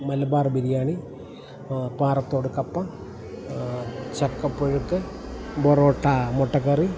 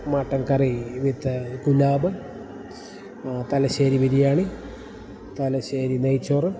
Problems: background sounds at intervals